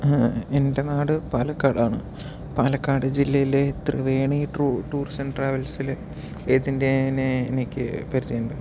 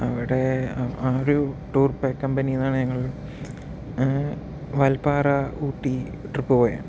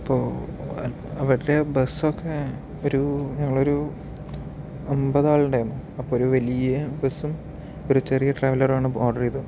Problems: low volume